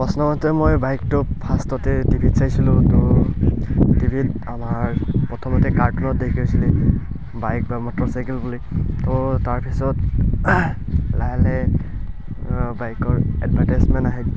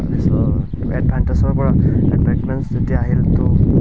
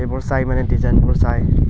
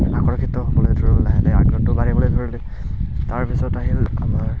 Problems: background sounds at intervals, background conversations at intervals